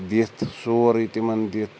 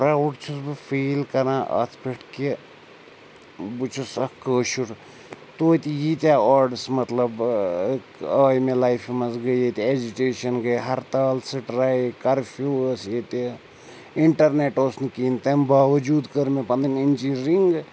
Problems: none marked